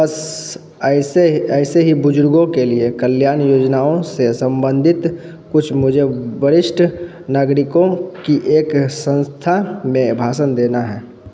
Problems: none marked